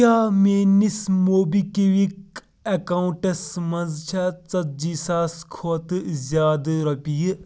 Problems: background sounds at intervals